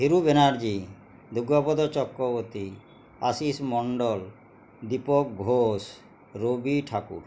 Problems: constant background noise, background conversations at intervals